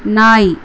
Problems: constant background noise